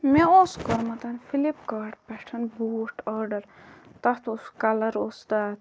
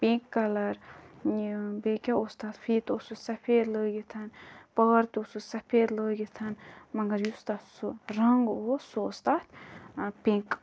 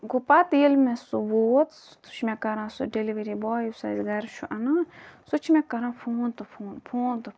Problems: background sounds at intervals